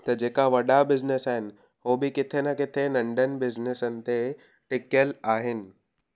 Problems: none marked